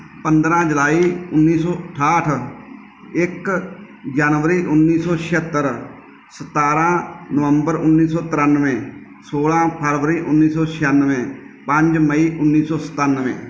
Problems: background sounds at intervals